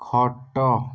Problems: none marked